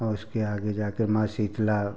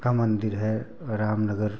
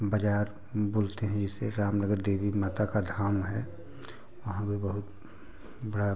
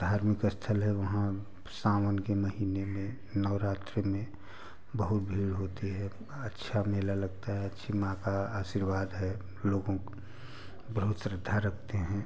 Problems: background sounds at intervals, continuous background conversations